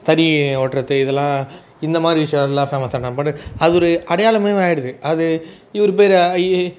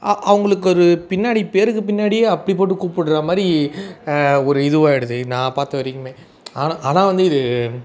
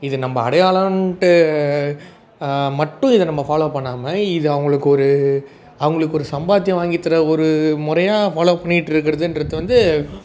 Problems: background sounds at intervals, background conversations at intervals